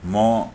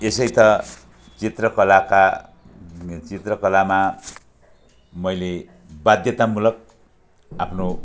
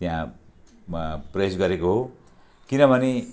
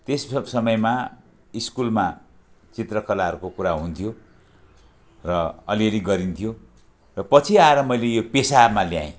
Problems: none marked